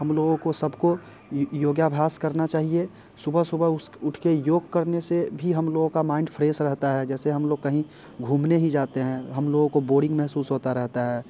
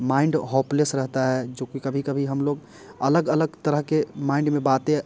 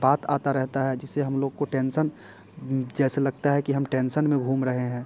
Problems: none marked